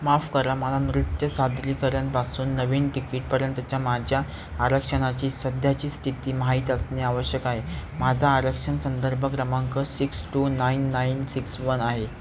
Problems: constant background noise